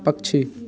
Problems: constant background noise